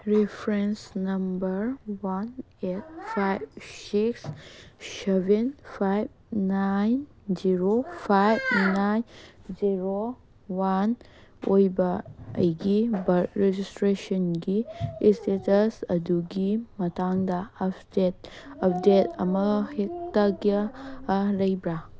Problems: background sounds at intervals, background conversations at intervals